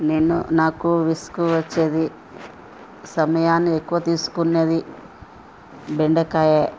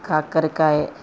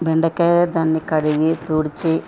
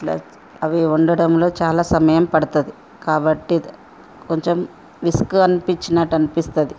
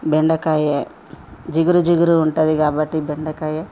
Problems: constant background noise